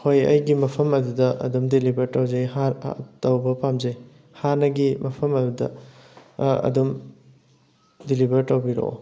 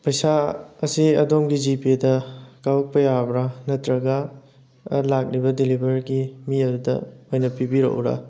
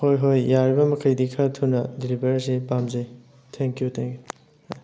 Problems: none marked